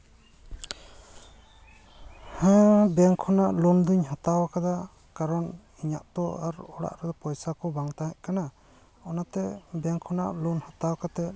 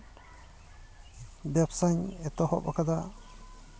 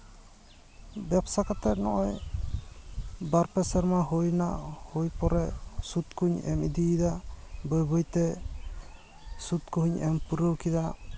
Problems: constant background noise, background conversations at intervals